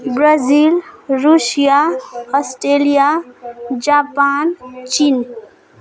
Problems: background sounds at intervals, background conversations at intervals